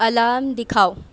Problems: none marked